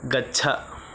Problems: constant background noise